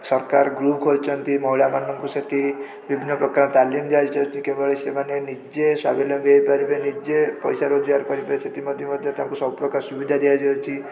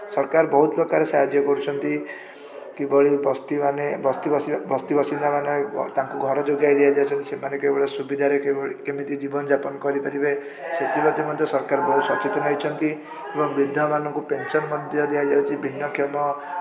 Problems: constant background noise, continuous background conversations